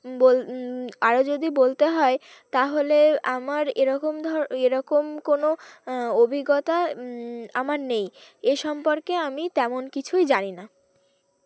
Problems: none marked